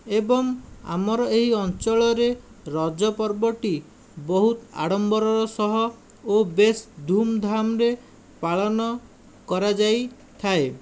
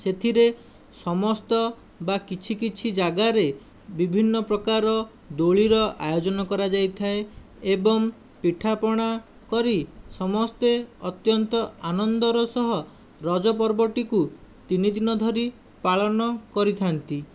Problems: none marked